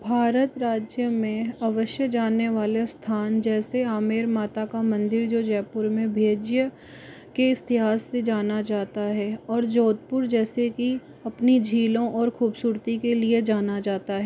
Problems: background sounds at intervals